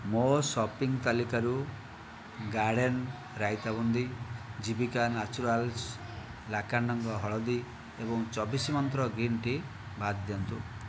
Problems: background conversations at intervals